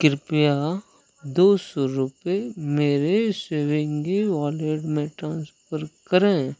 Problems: none marked